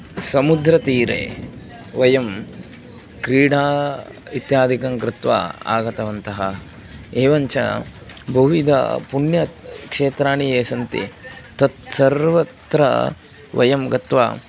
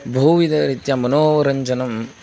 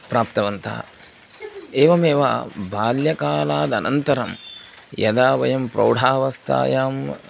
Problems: none marked